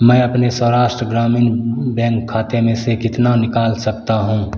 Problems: constant background noise